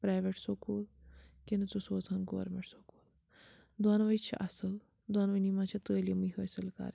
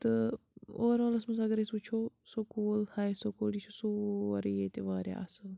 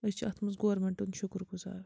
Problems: none marked